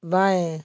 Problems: background sounds at intervals